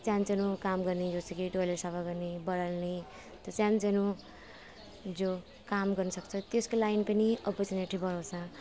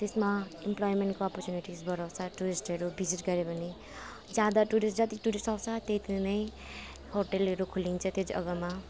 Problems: constant background noise